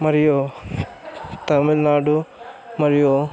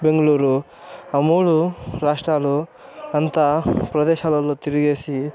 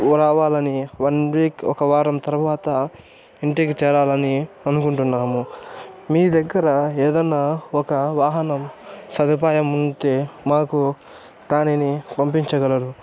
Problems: constant background noise, background conversations at intervals